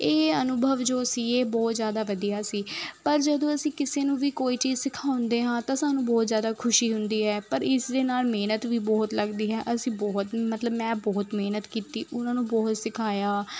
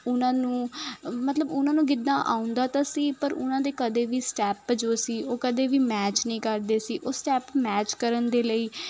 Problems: constant background noise